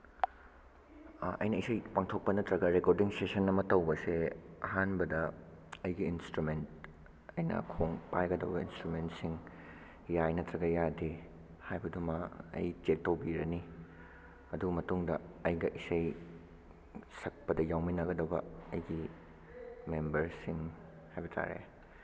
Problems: background sounds at intervals